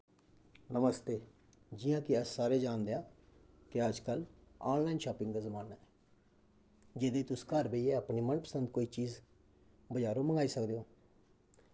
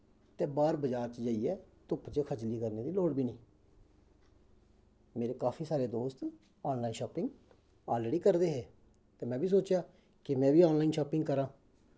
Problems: constant background noise